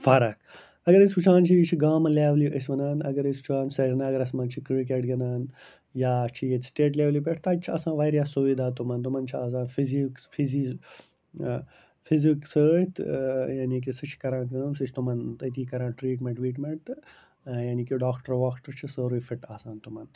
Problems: constant background noise